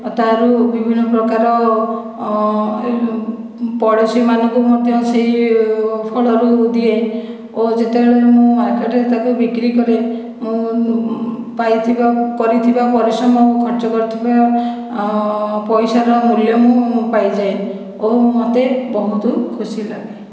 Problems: echo